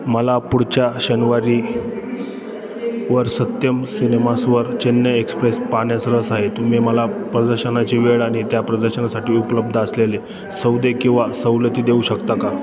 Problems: constant background noise, continuous background conversations